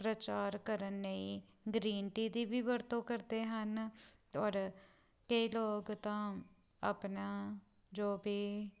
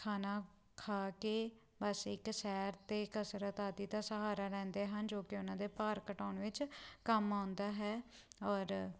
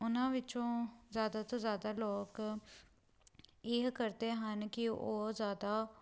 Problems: background sounds at intervals